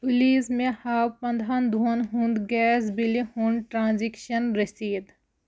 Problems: background sounds at intervals